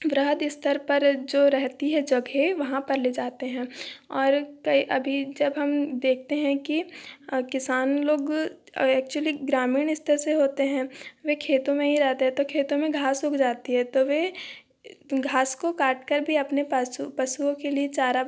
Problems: none marked